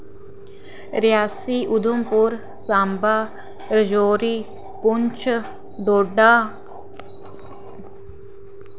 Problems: none marked